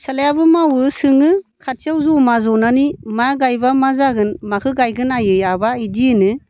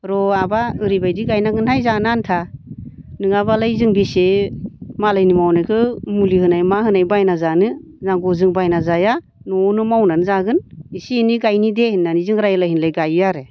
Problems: constant background noise